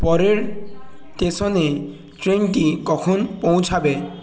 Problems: none marked